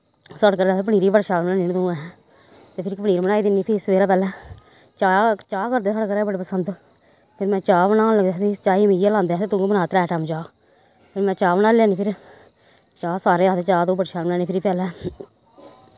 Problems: none marked